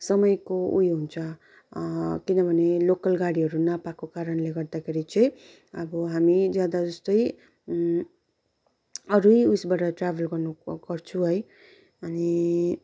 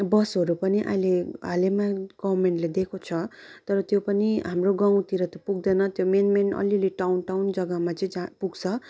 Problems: none marked